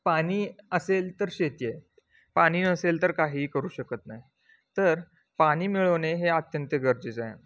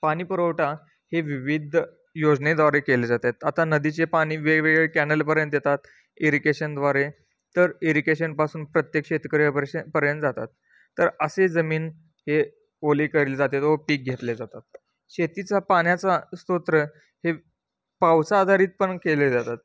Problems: none marked